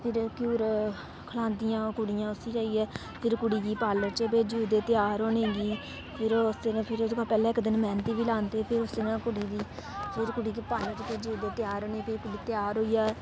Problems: constant background noise